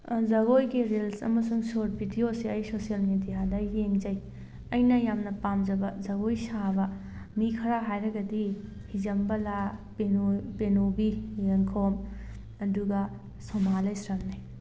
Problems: none marked